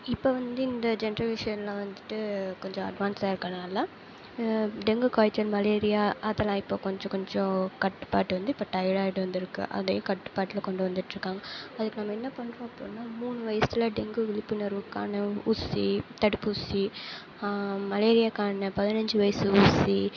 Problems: none marked